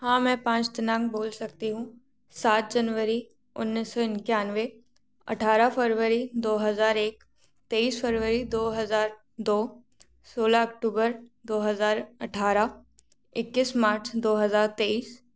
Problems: background sounds at intervals